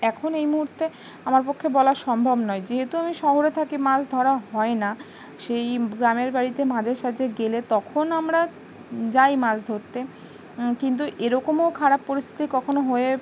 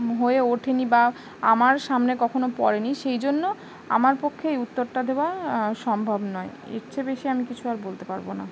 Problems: constant background noise